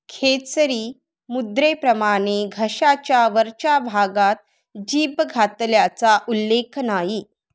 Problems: none marked